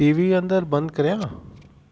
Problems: constant background noise